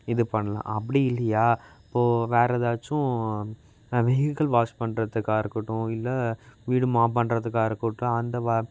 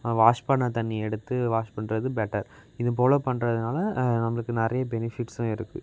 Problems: constant background noise